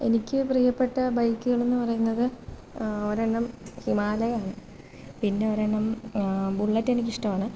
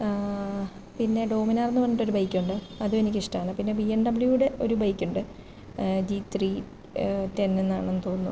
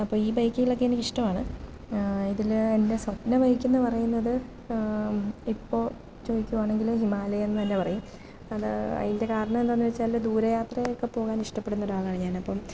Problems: none marked